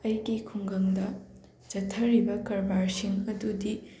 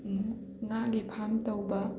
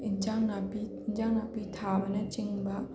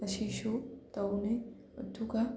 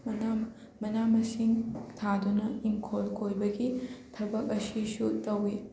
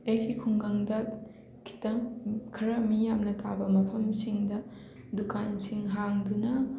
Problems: constant background noise, background conversations at intervals